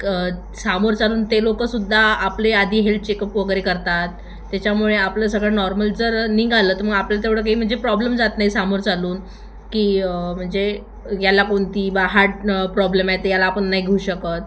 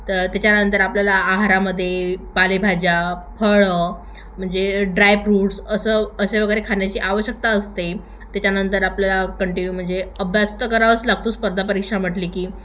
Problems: constant background noise, background conversations at intervals, echo